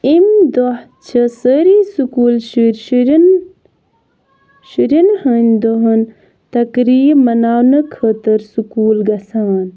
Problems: background sounds at intervals